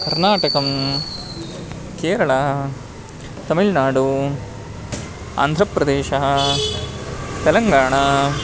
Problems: background sounds at intervals